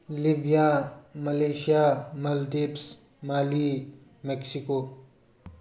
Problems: background conversations at intervals